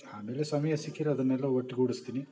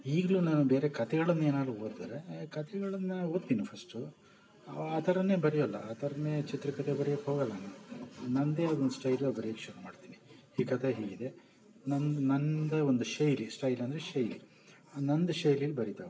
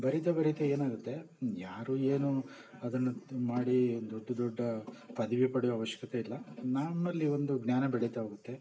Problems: background sounds at intervals